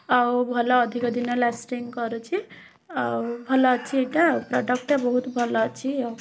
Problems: constant background noise, continuous background conversations